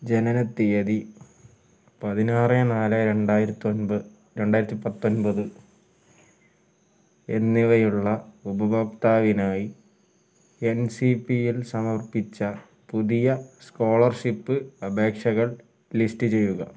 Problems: low volume